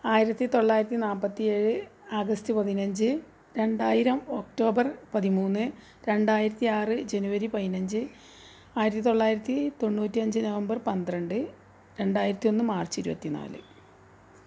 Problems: none marked